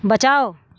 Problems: none marked